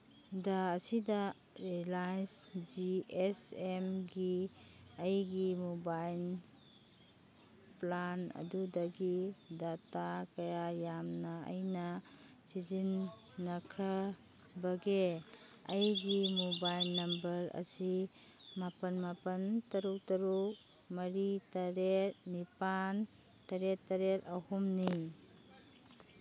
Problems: background sounds at intervals